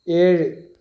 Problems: none marked